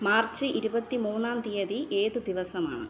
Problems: low volume